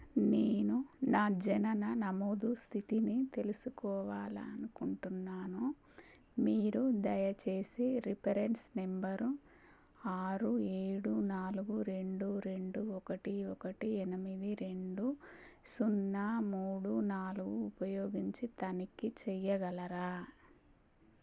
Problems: low volume